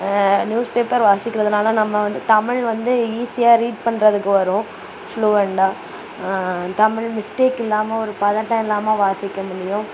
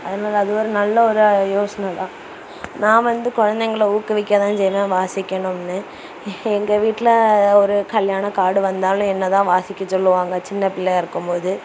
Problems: constant background noise